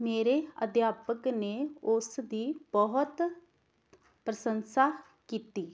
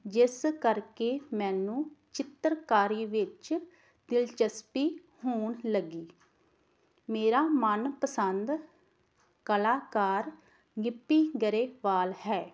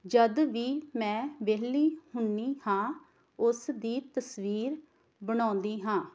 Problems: background sounds at intervals